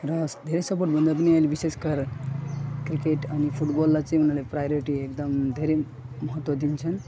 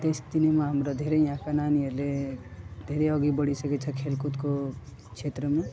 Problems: constant background noise, background conversations at intervals, low volume